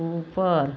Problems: none marked